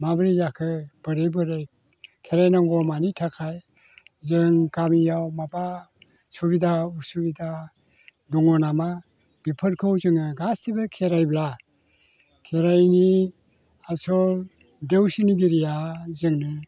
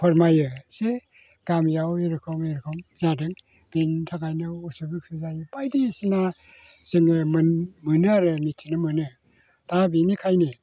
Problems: none marked